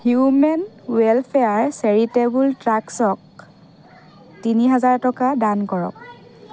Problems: constant background noise, continuous background conversations